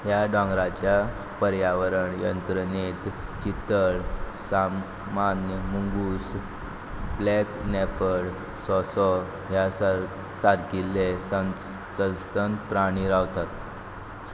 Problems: none marked